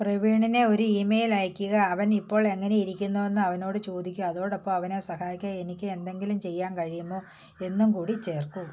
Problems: none marked